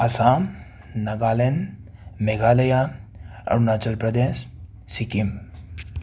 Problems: background sounds at intervals